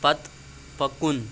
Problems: constant background noise